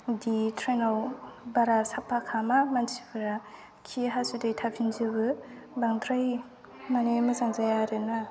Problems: none marked